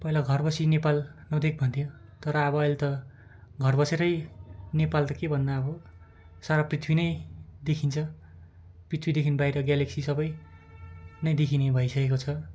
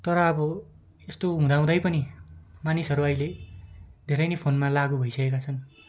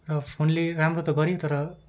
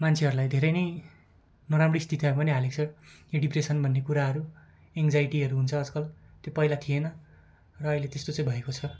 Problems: background sounds at intervals